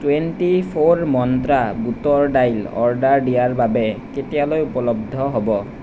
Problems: none marked